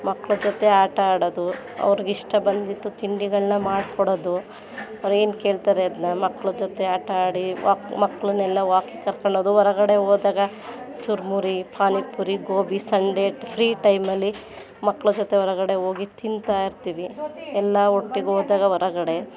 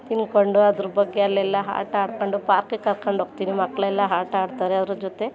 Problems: background sounds at intervals